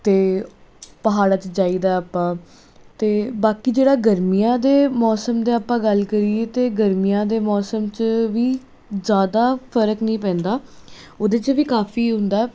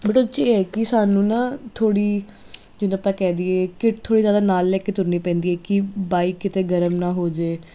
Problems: constant background noise